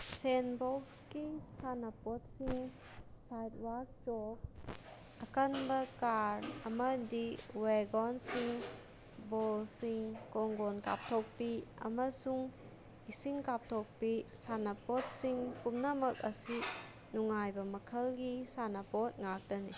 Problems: constant background noise